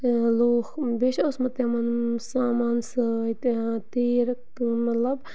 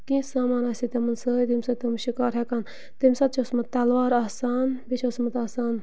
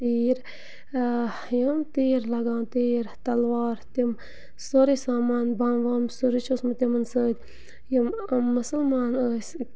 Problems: none marked